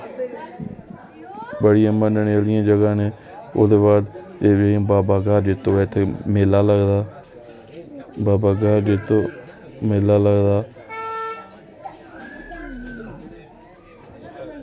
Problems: background sounds at intervals